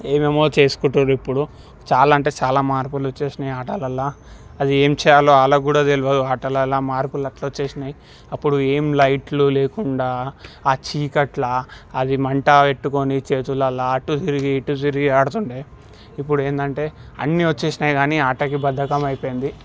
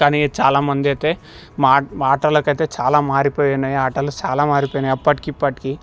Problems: background sounds at intervals